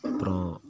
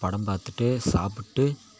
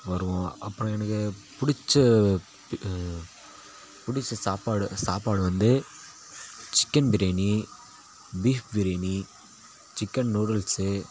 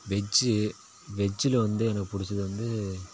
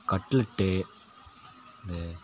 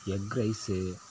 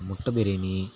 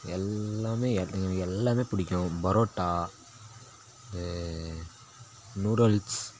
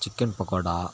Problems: constant background noise, background conversations at intervals